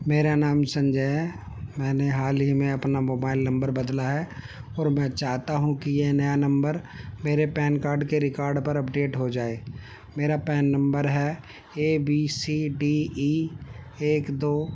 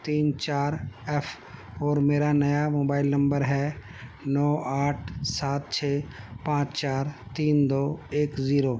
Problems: constant background noise